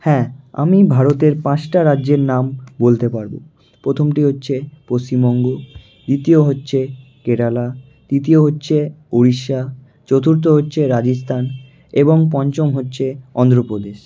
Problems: none marked